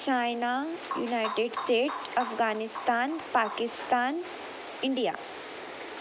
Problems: background sounds at intervals